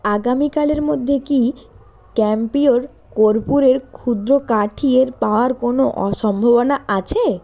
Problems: constant background noise